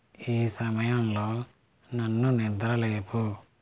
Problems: constant background noise